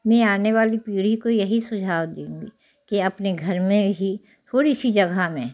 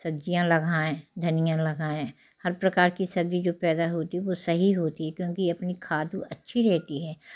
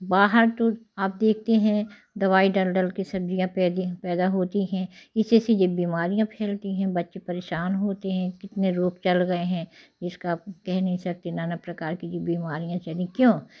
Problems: none marked